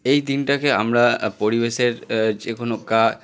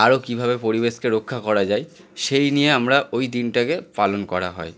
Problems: continuous background conversations